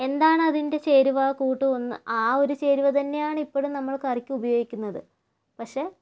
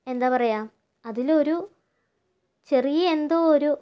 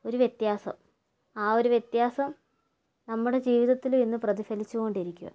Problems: low volume